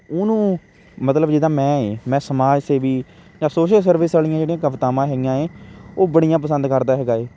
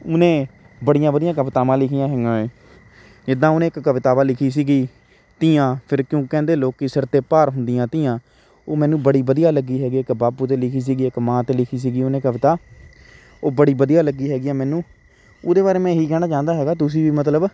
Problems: constant background noise